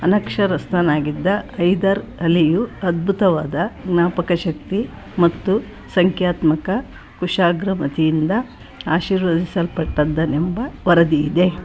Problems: none marked